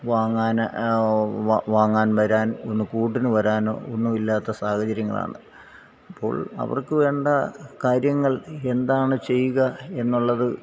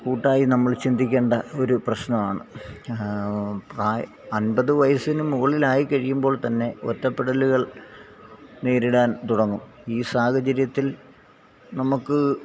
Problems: background sounds at intervals, low volume